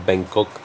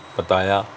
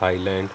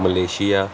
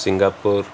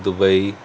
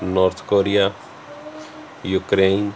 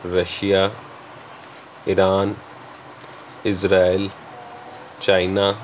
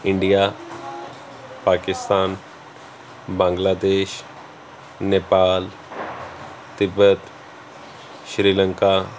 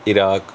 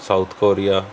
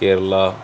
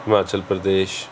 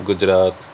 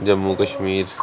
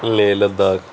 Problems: none marked